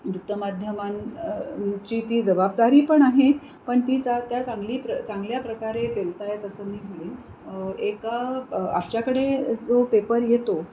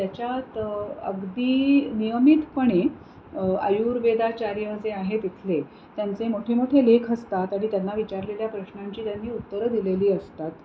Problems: constant background noise